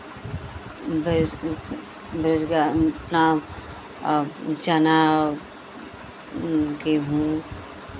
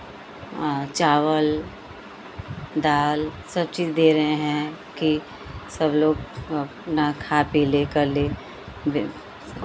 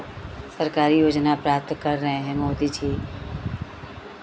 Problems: constant background noise, continuous background conversations